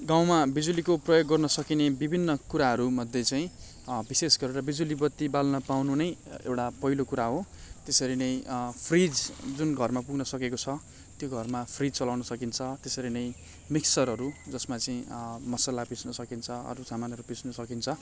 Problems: none marked